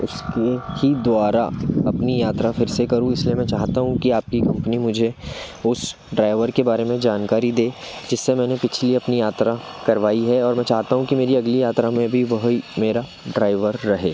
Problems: background sounds at intervals